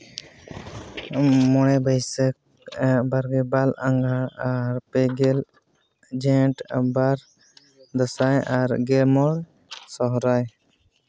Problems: constant background noise